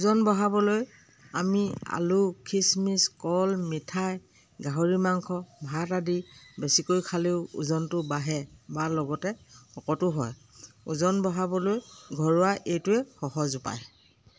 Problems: none marked